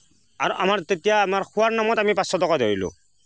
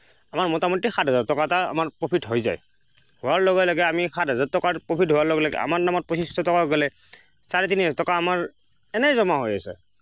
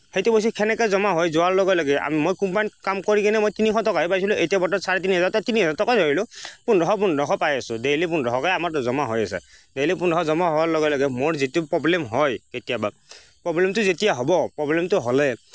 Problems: constant background noise